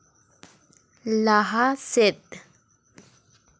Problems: none marked